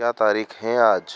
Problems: none marked